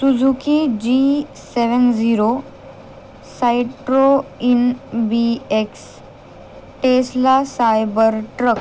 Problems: none marked